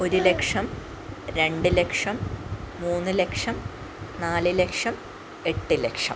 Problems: none marked